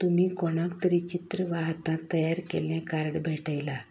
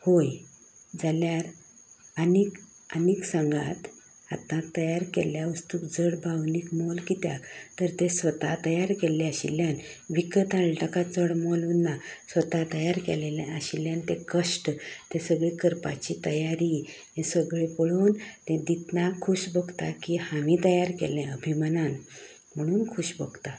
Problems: background sounds at intervals, background conversations at intervals